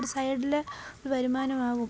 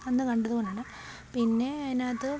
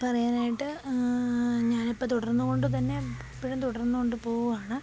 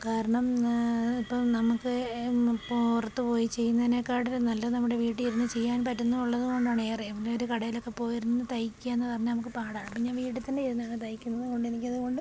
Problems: background sounds at intervals